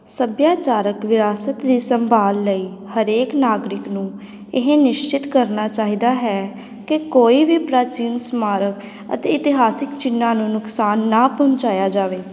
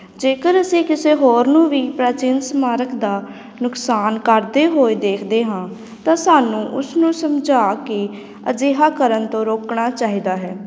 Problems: background sounds at intervals